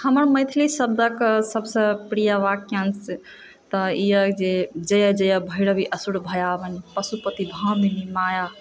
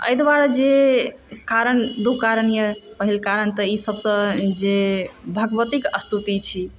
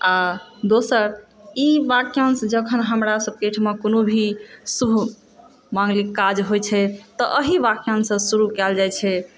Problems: background sounds at intervals